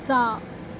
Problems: constant background noise